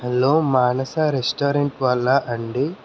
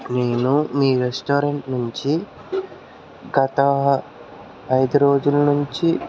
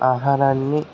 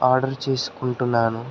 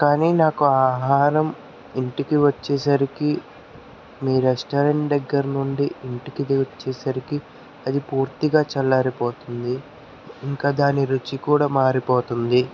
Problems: none marked